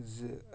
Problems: background sounds at intervals